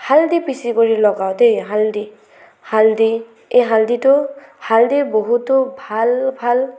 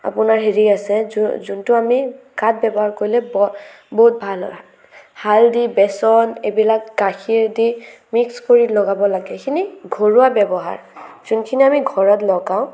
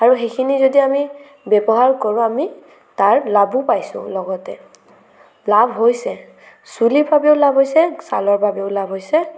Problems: none marked